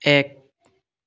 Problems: none marked